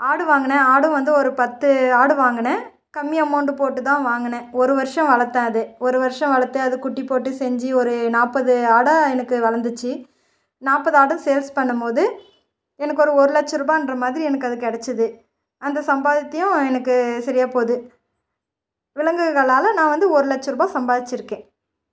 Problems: none marked